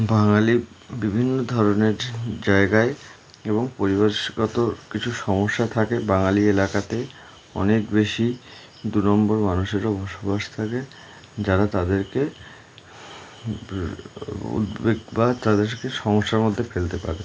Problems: constant background noise